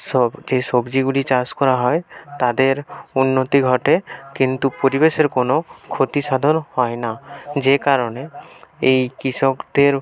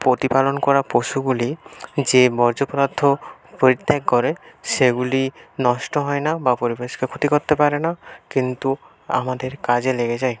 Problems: background sounds at intervals, continuous background conversations